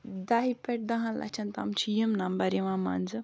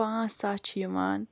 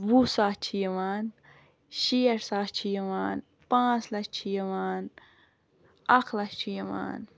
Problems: background sounds at intervals